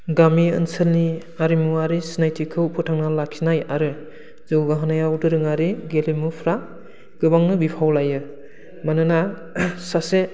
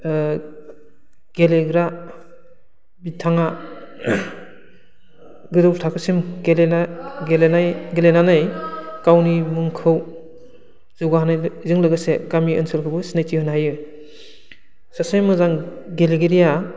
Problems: low volume